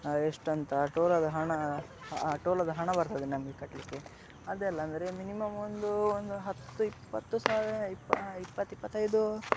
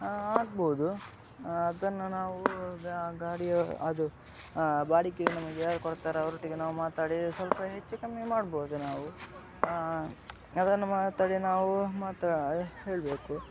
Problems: background sounds at intervals